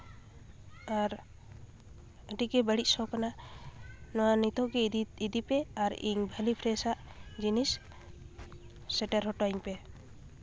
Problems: constant background noise, continuous background conversations